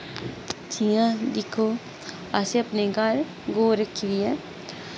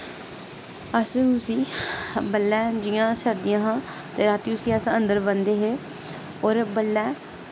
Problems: constant background noise